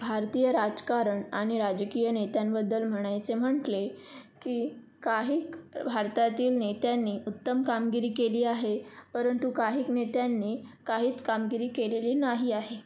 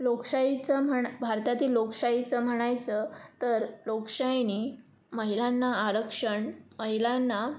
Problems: constant background noise